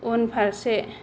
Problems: low volume